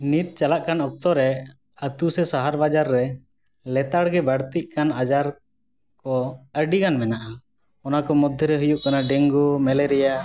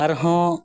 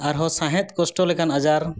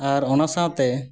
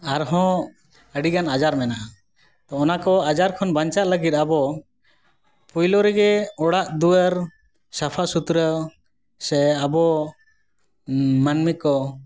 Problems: background sounds at intervals